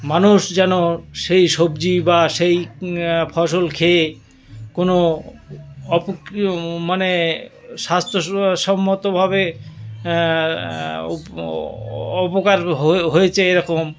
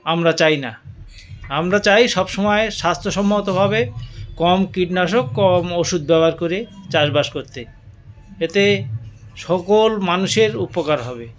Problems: none marked